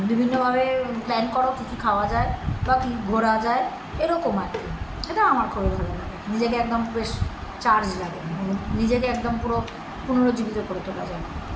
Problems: none marked